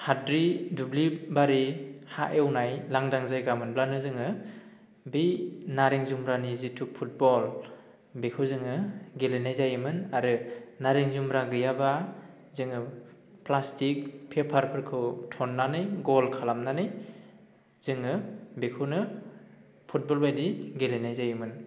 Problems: low volume